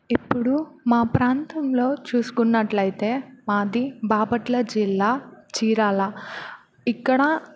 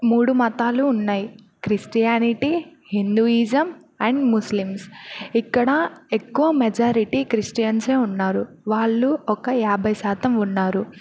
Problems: none marked